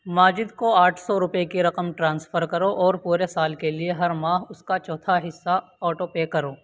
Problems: constant background noise